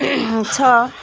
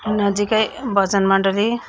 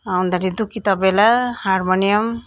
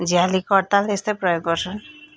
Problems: constant background noise